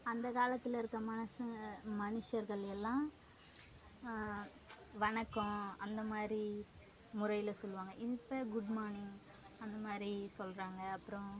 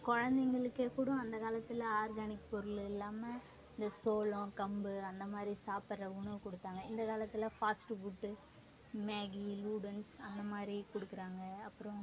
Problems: background conversations at intervals, low volume